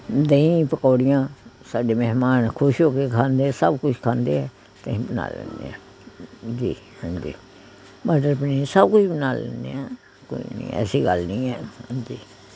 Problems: continuous background conversations